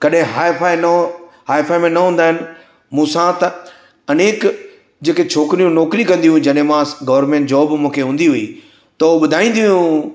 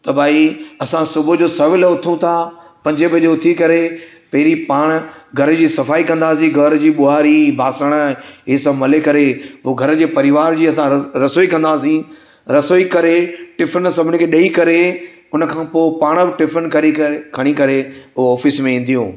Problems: echo